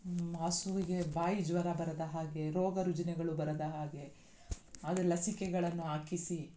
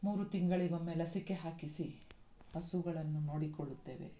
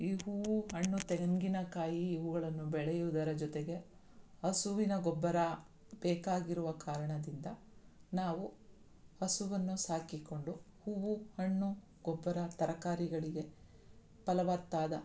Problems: none marked